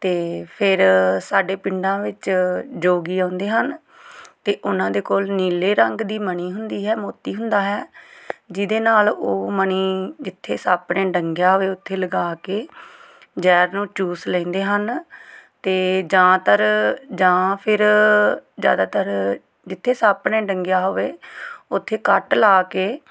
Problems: none marked